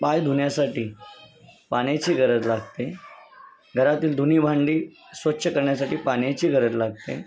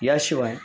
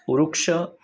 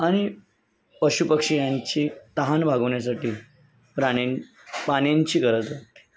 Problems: constant background noise, continuous background conversations